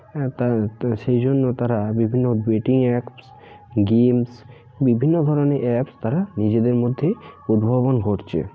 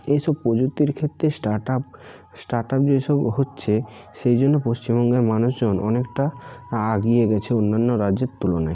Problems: constant background noise, continuous background conversations